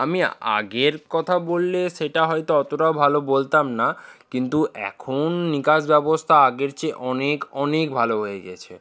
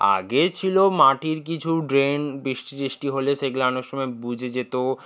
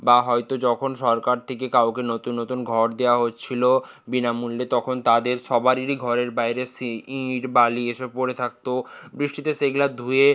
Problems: background sounds at intervals